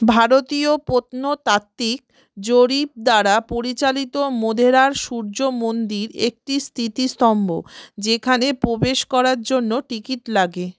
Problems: background sounds at intervals